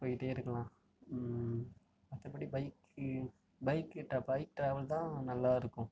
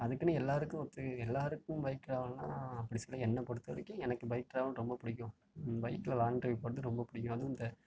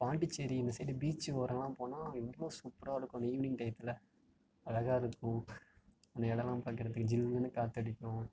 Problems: low volume